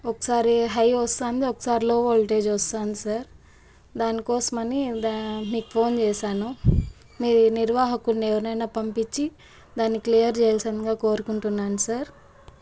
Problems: none marked